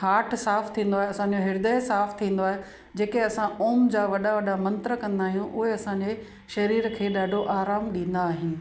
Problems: constant background noise, echo